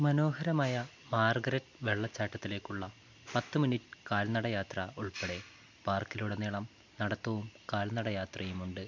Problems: none marked